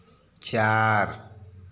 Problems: none marked